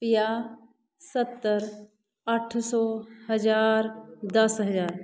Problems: background sounds at intervals, background conversations at intervals